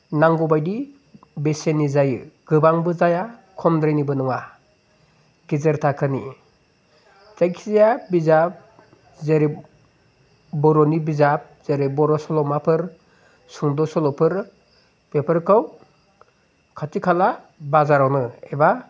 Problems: constant background noise